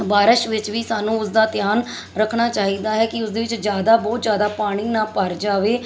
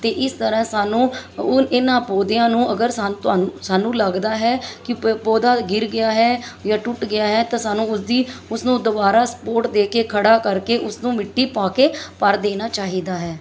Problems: constant background noise